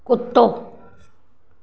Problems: constant background noise